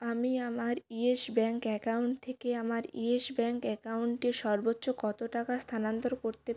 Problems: background sounds at intervals